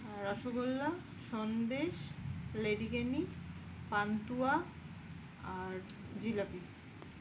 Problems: constant background noise